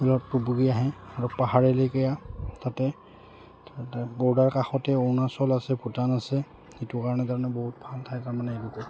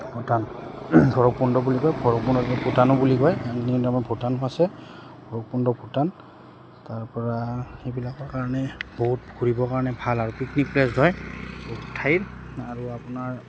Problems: background sounds at intervals